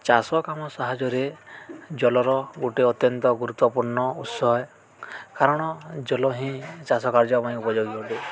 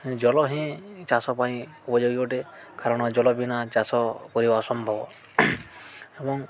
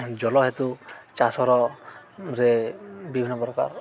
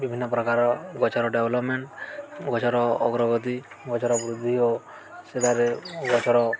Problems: constant background noise, continuous background conversations